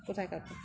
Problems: constant background noise